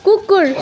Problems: constant background noise